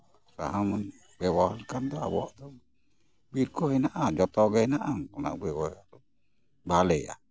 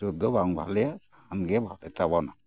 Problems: background sounds at intervals, background conversations at intervals